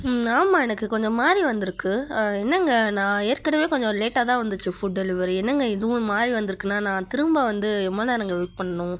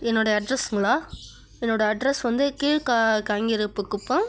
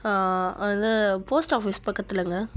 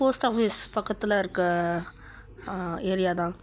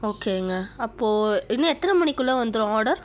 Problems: background sounds at intervals